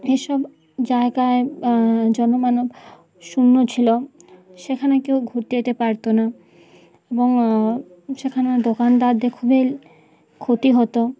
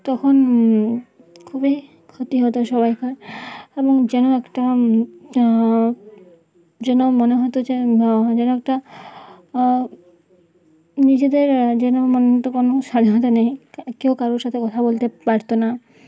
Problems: constant background noise, continuous background conversations